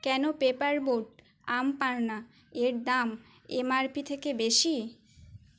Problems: none marked